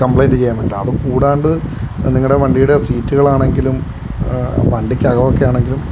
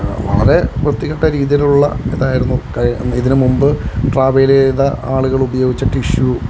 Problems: none marked